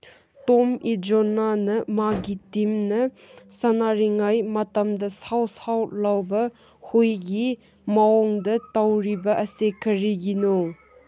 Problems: none marked